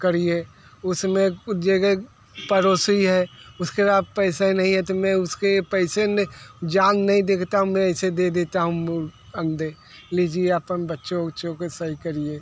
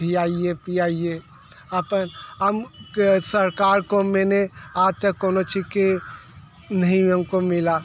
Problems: background sounds at intervals